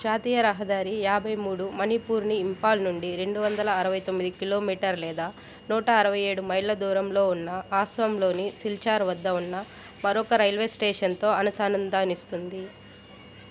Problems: background sounds at intervals